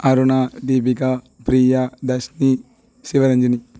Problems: none marked